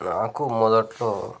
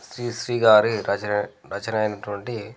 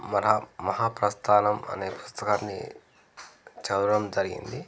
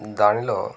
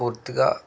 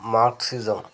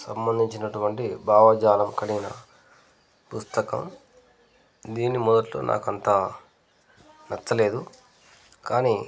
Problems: background conversations at intervals